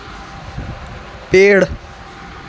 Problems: constant background noise